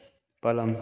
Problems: constant background noise